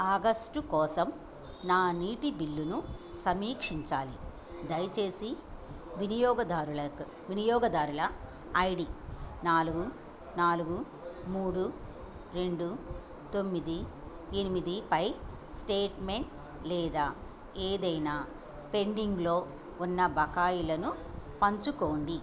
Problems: background sounds at intervals